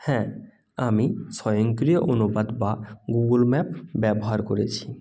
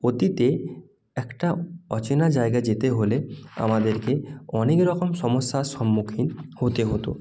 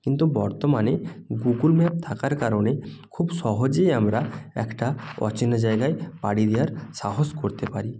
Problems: none marked